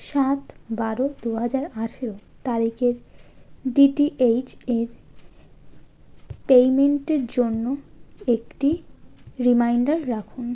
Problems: constant background noise